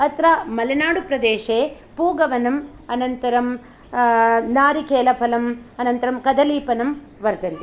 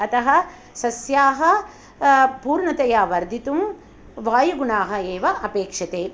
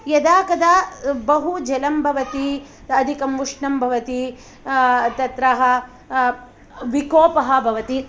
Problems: background sounds at intervals